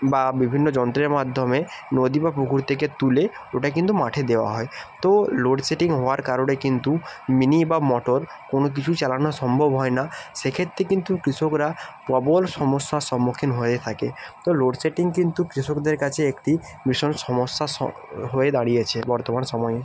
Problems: background sounds at intervals